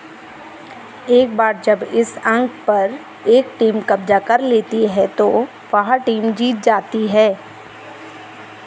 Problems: none marked